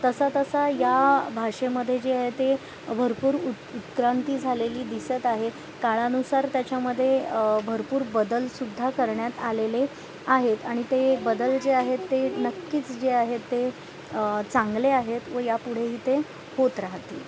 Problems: constant background noise